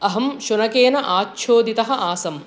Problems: constant background noise